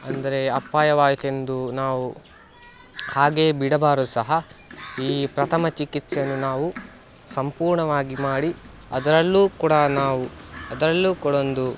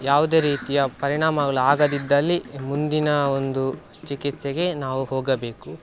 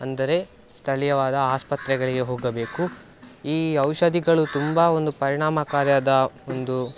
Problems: background sounds at intervals